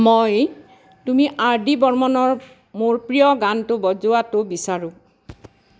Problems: constant background noise